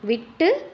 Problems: background sounds at intervals